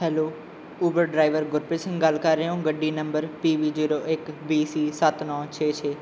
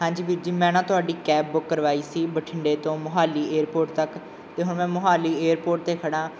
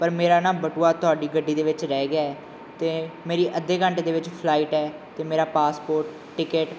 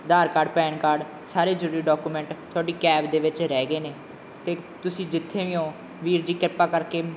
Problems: background sounds at intervals